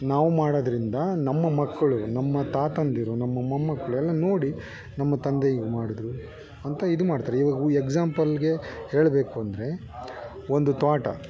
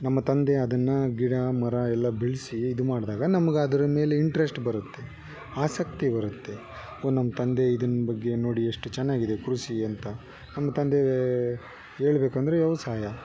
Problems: background conversations at intervals